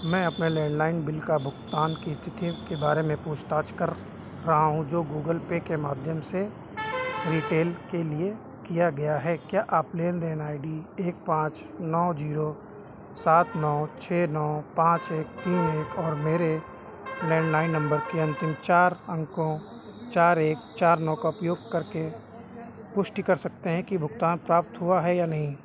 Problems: constant background noise